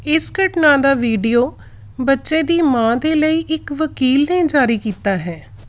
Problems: background sounds at intervals